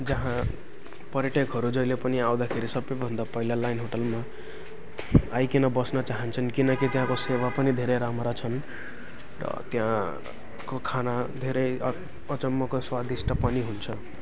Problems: constant background noise, continuous background conversations